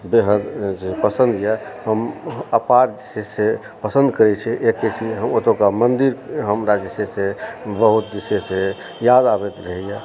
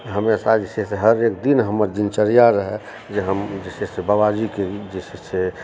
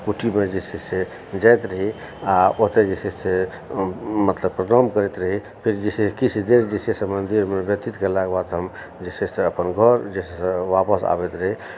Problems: background sounds at intervals, background conversations at intervals